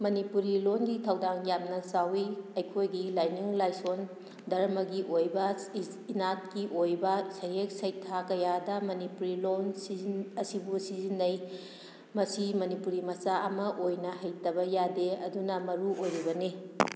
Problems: background sounds at intervals